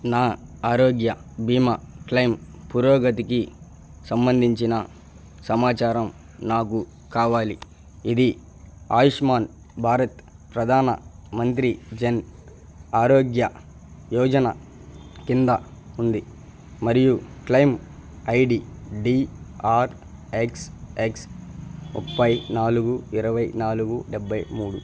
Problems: none marked